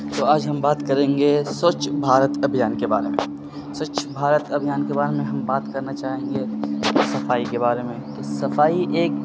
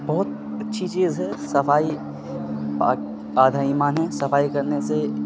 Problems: constant background noise